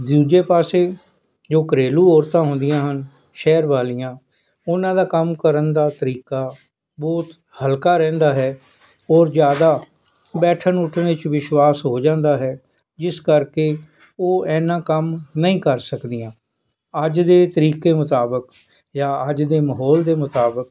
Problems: none marked